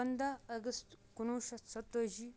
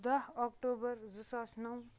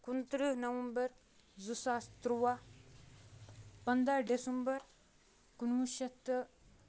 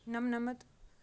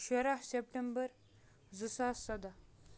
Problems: background sounds at intervals